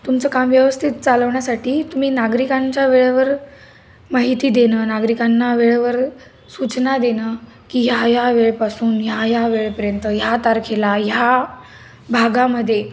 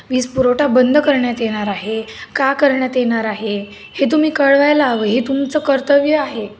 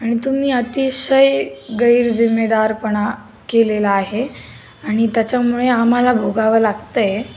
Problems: constant background noise